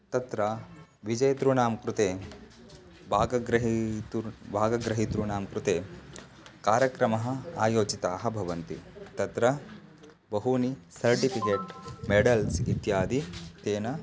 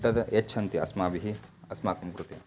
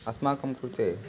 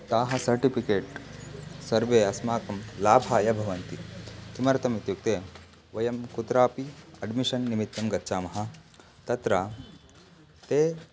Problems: background sounds at intervals